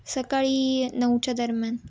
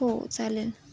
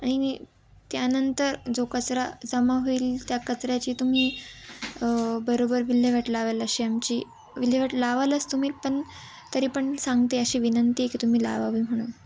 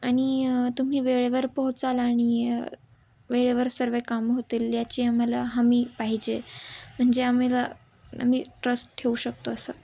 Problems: none marked